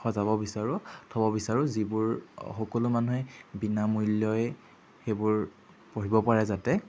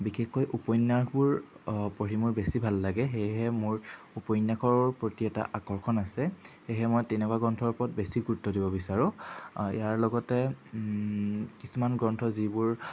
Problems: background sounds at intervals